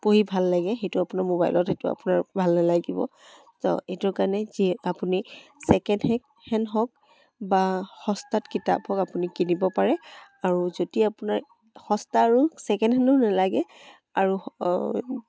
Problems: background sounds at intervals, background conversations at intervals